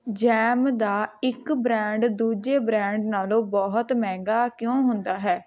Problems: continuous background conversations